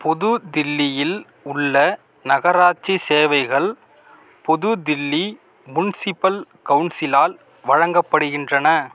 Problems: background sounds at intervals